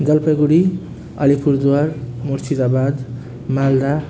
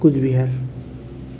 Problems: constant background noise